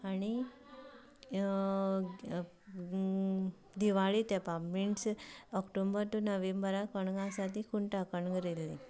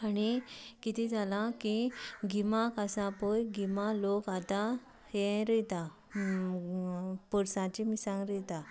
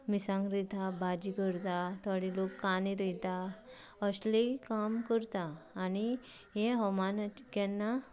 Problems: low volume